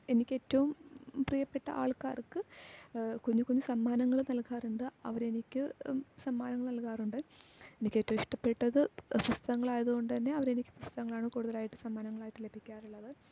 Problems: low volume